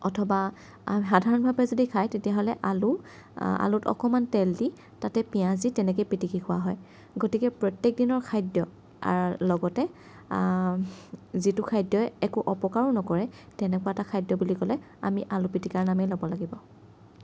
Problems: none marked